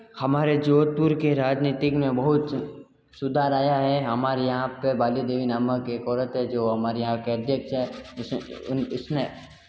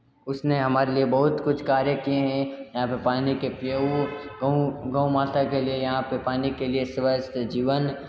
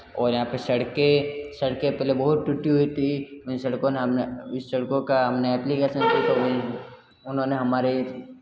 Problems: background sounds at intervals